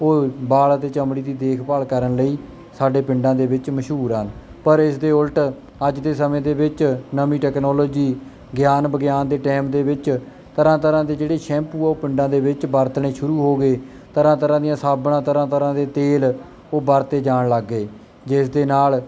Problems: none marked